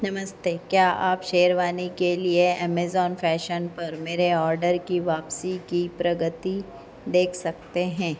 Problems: none marked